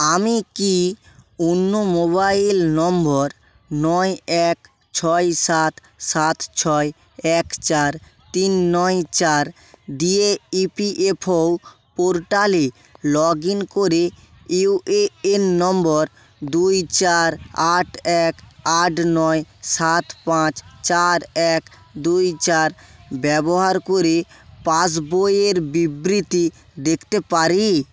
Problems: none marked